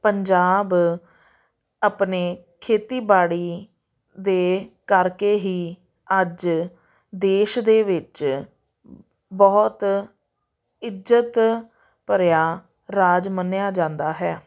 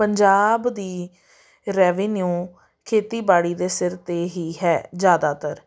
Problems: none marked